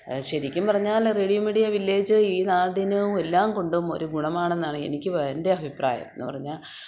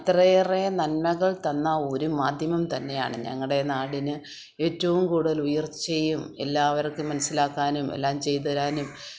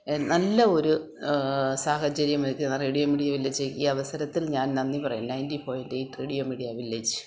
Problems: background sounds at intervals